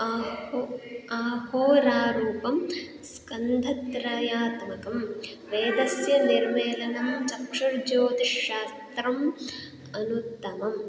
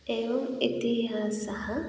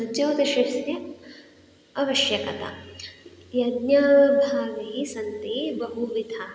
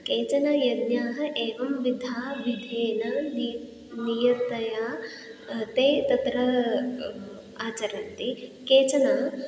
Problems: none marked